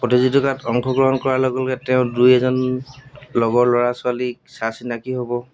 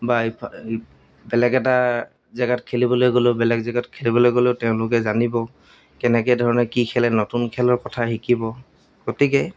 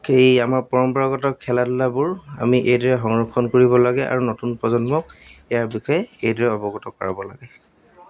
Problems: background sounds at intervals